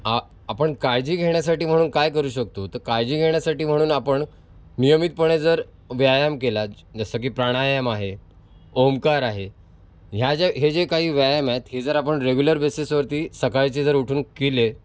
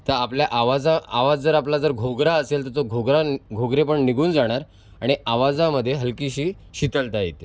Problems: constant background noise